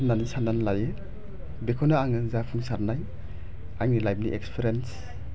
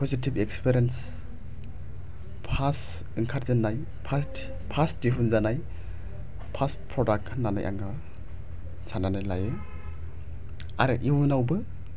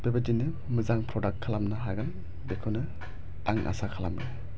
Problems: none marked